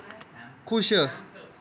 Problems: background sounds at intervals